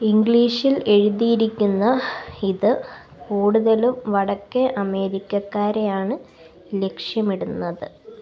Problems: background sounds at intervals